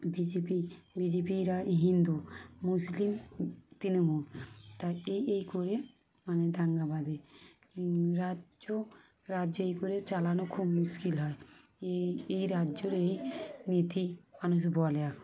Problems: none marked